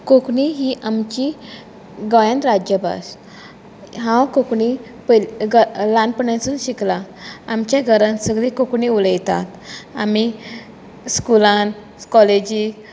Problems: constant background noise, continuous background conversations